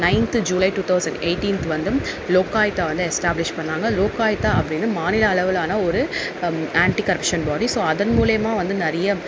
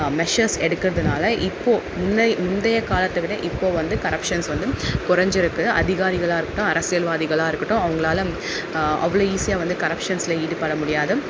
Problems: background sounds at intervals